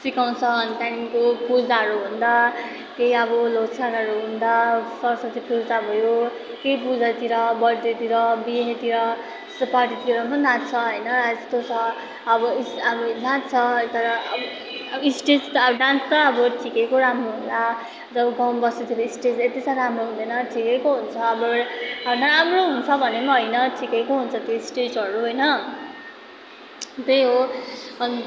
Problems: constant background noise